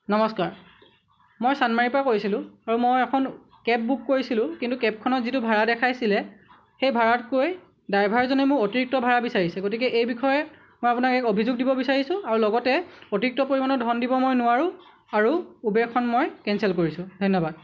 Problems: none marked